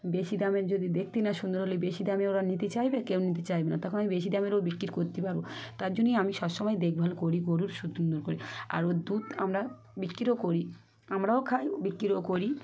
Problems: background sounds at intervals, background conversations at intervals